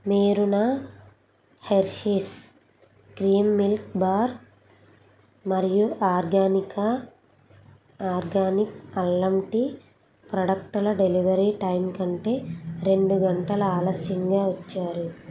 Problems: background sounds at intervals